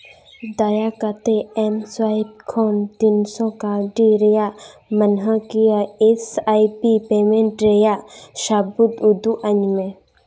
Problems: none marked